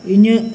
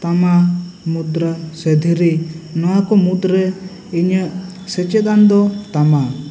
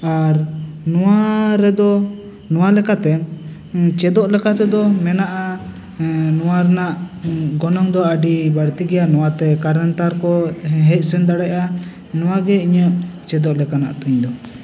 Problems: constant background noise, background conversations at intervals